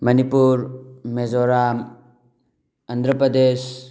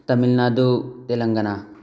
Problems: none marked